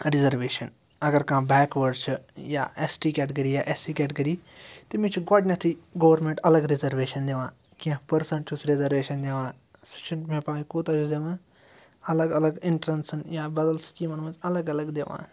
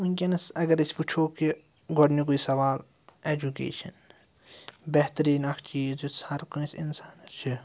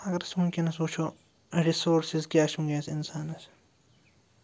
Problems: low volume